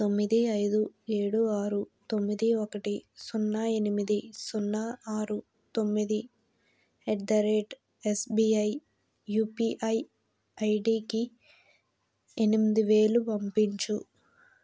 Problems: background sounds at intervals, low volume